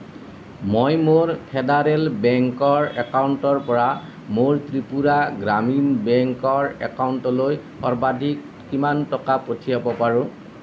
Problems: constant background noise